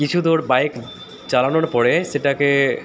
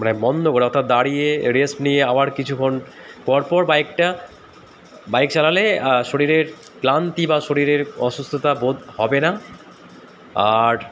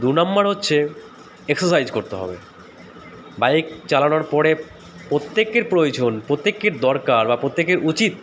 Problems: constant background noise